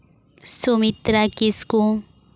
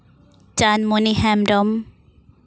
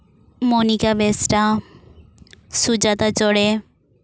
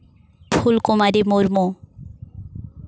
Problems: none marked